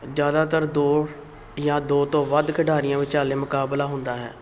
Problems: constant background noise